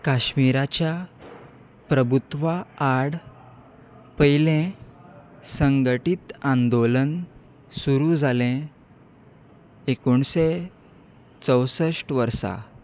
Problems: none marked